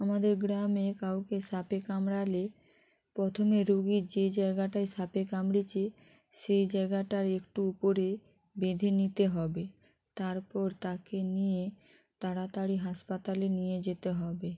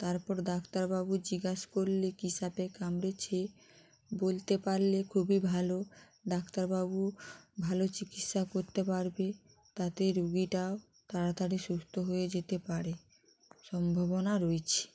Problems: none marked